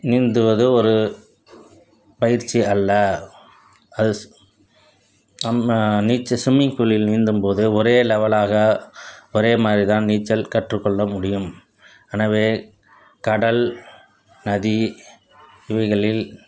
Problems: background sounds at intervals